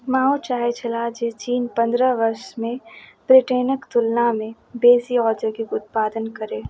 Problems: none marked